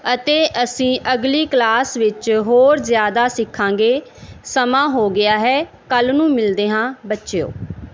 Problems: background sounds at intervals